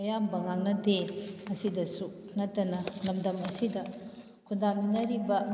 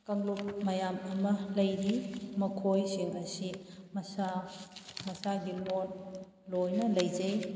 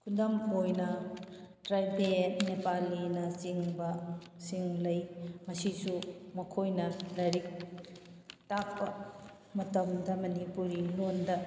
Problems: background sounds at intervals